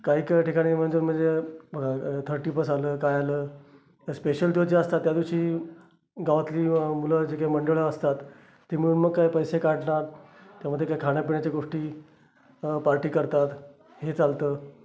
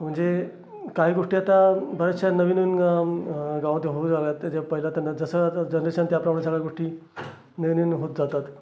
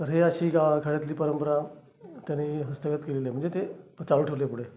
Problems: constant background noise, continuous background conversations